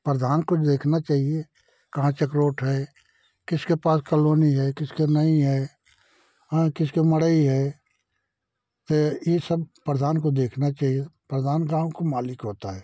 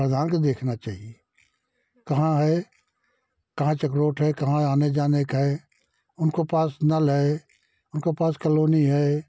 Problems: none marked